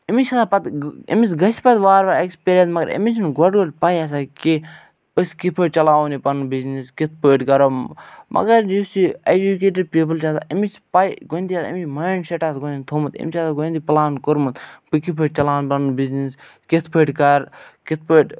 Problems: none marked